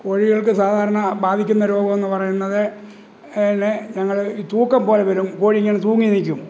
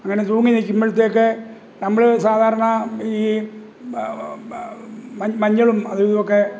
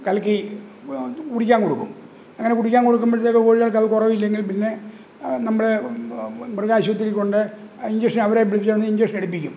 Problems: background sounds at intervals